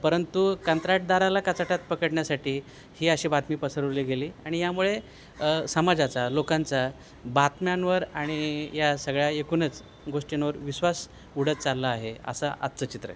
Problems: none marked